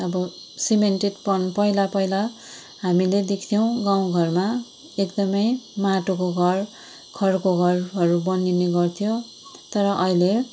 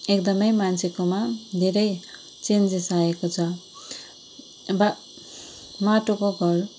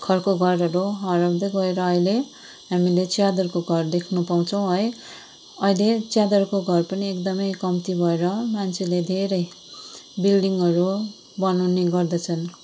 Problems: constant background noise